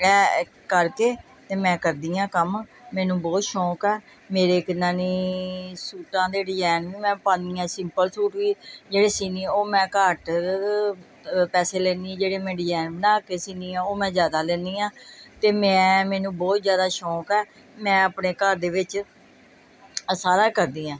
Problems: background conversations at intervals